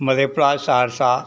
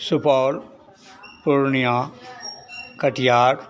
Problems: constant background noise, continuous background conversations